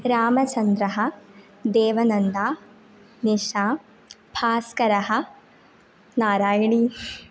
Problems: none marked